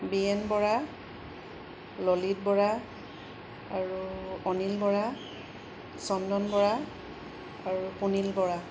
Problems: background sounds at intervals